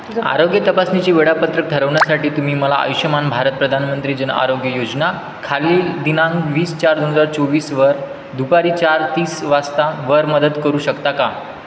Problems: constant background noise, background conversations at intervals